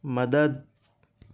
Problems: constant background noise